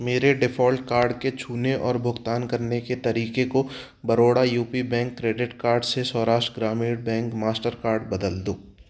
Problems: none marked